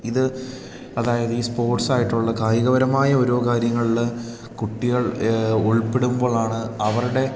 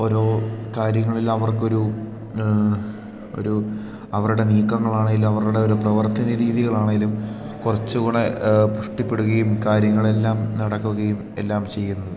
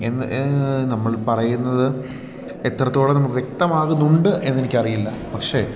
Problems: background sounds at intervals